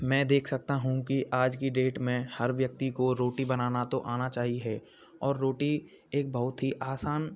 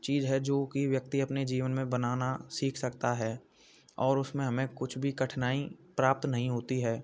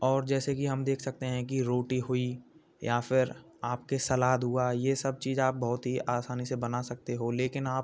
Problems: constant background noise, background conversations at intervals